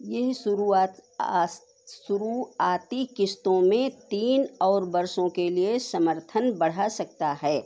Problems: none marked